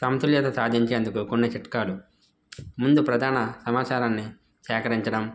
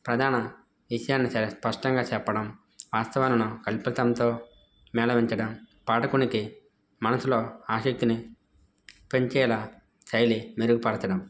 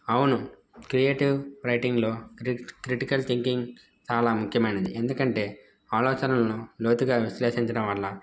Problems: background sounds at intervals